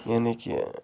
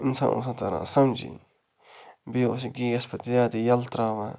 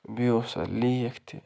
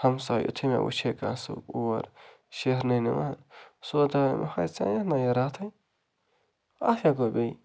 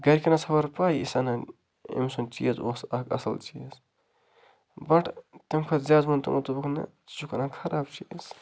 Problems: constant background noise